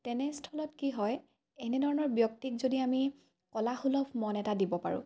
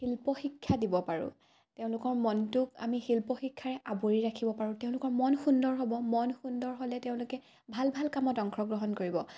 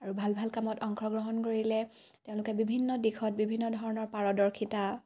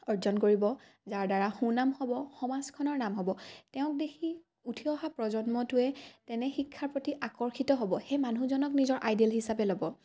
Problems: none marked